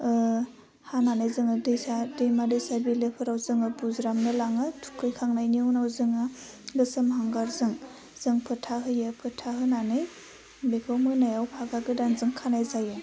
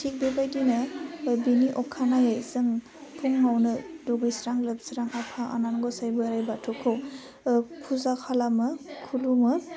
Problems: constant background noise